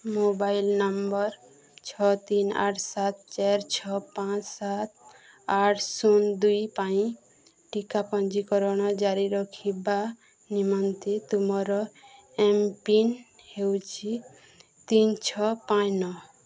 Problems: none marked